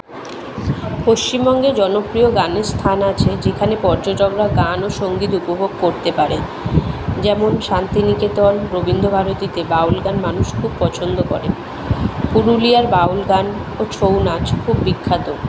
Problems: none marked